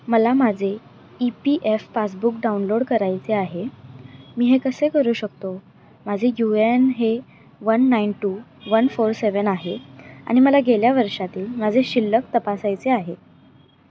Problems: constant background noise